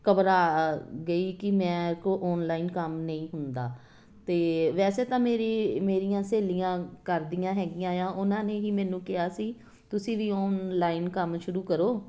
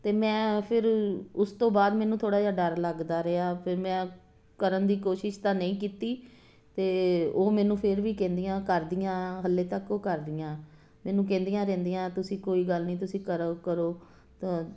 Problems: none marked